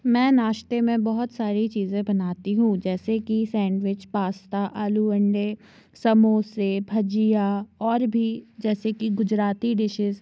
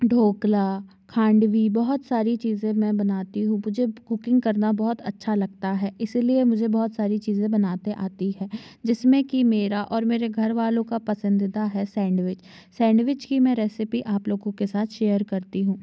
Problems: none marked